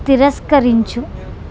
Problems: none marked